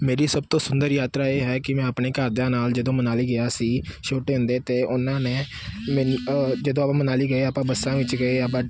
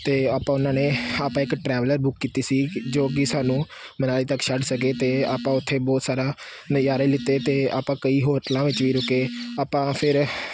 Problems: constant background noise